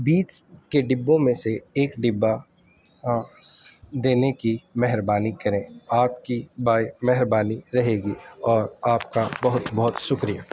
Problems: constant background noise